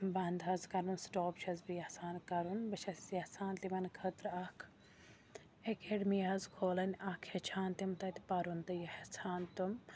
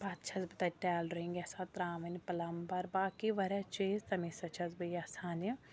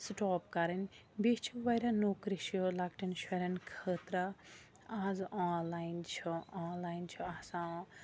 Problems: constant background noise, low volume